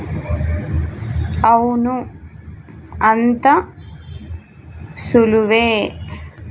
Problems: constant background noise